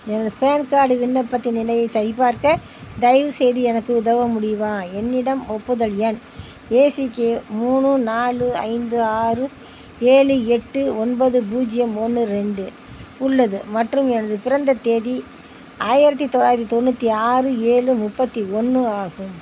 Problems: none marked